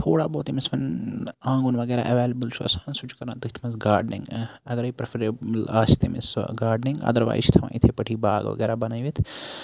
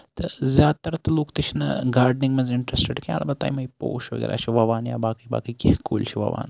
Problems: none marked